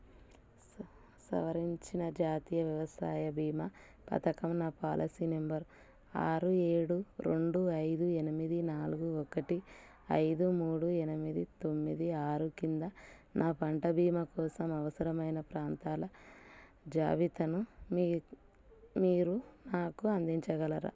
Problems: low volume